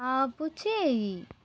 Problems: constant background noise